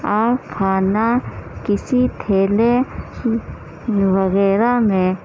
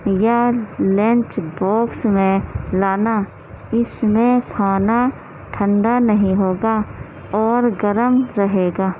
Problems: constant background noise